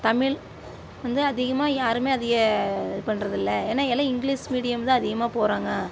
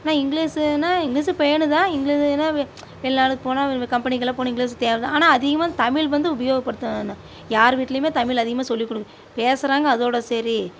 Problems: none marked